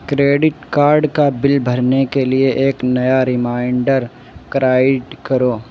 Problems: constant background noise